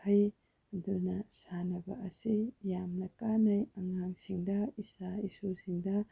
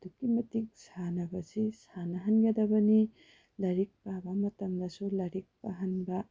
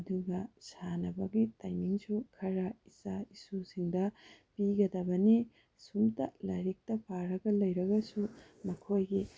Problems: low volume